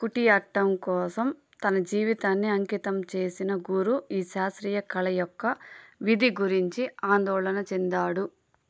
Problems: background sounds at intervals